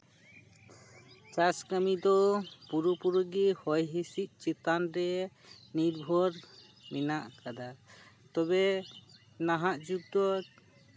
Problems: background sounds at intervals